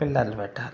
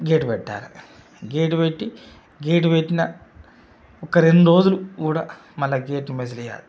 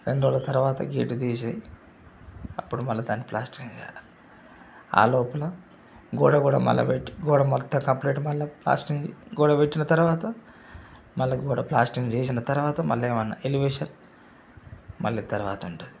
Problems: none marked